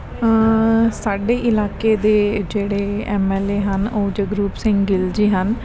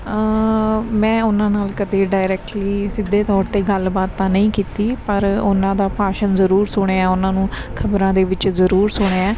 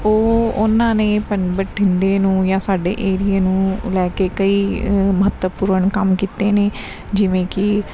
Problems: background sounds at intervals, background conversations at intervals